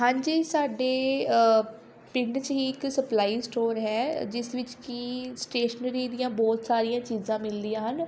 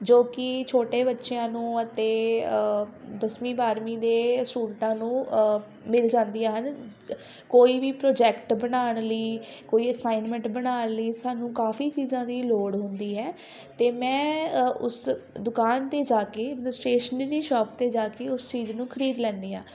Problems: constant background noise, background conversations at intervals